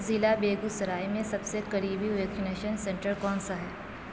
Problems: constant background noise